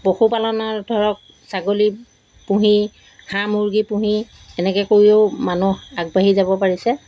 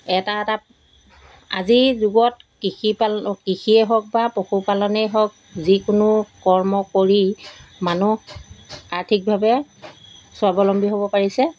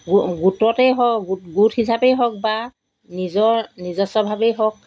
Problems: background sounds at intervals